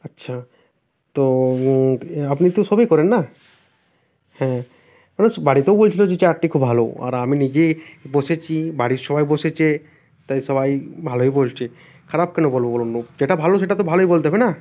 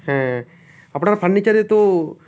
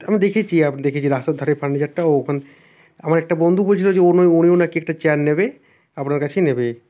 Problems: constant background noise